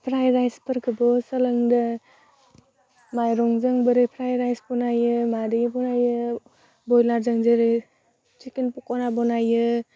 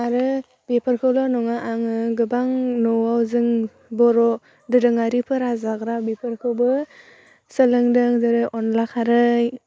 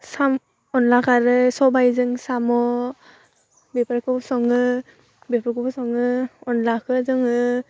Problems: none marked